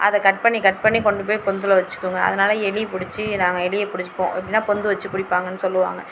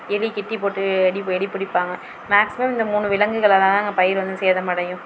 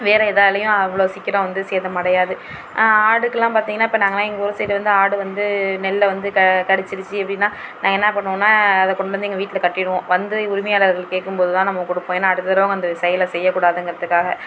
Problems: constant background noise